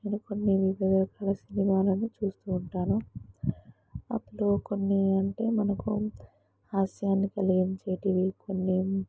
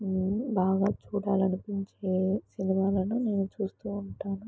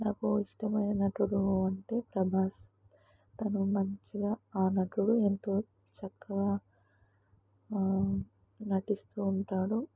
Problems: low volume